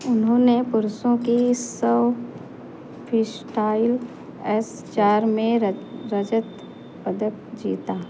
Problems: constant background noise